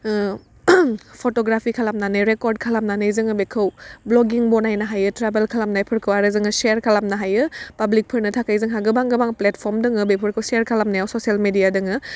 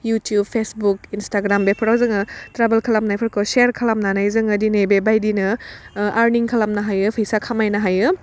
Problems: none marked